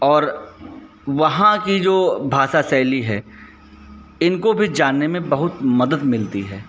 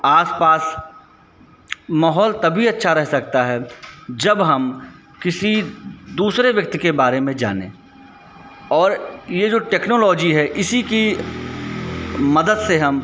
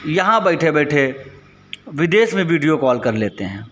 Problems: constant background noise